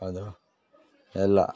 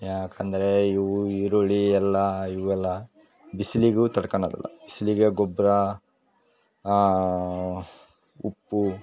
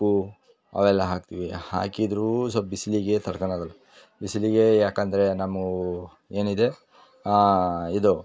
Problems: none marked